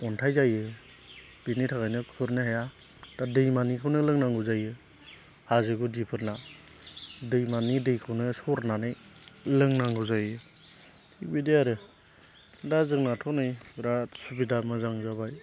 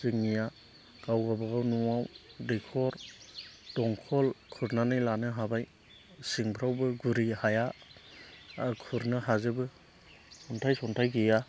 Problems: constant background noise